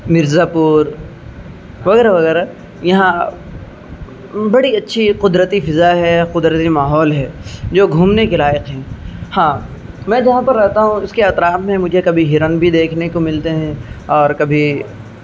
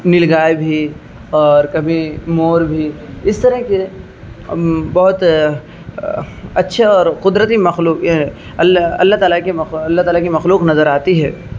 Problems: constant background noise